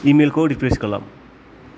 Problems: background sounds at intervals